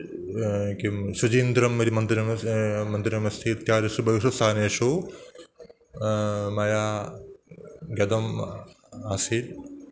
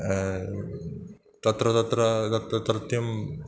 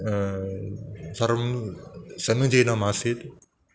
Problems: none marked